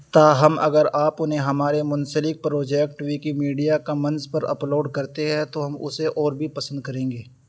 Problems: constant background noise